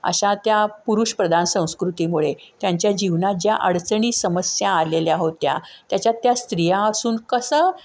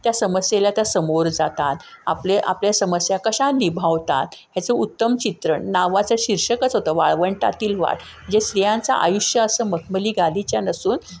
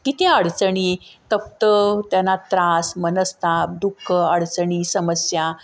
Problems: constant background noise